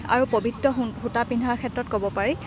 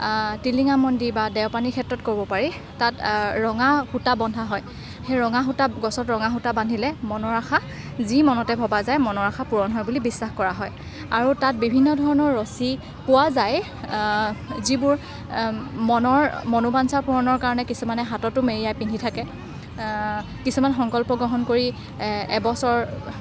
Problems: constant background noise